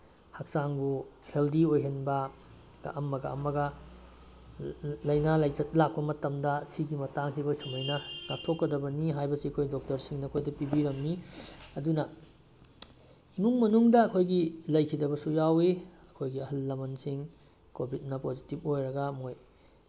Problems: background sounds at intervals